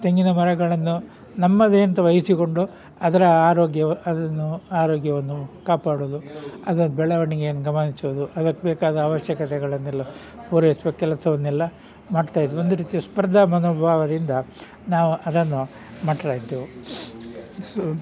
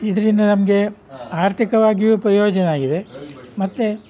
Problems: background sounds at intervals